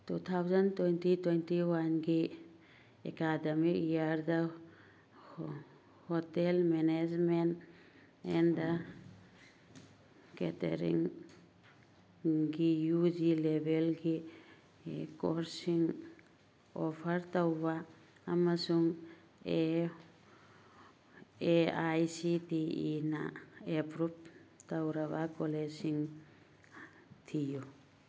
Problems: background sounds at intervals